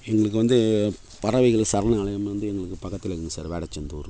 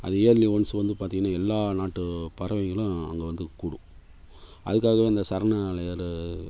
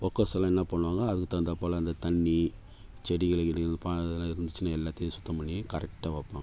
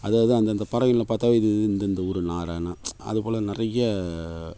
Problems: background sounds at intervals